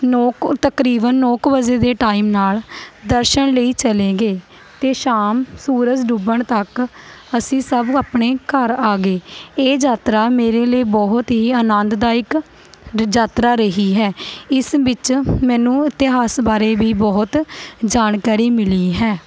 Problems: constant background noise